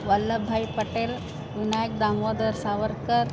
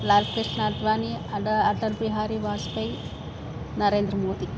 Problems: constant background noise